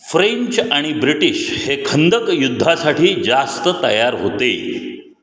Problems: none marked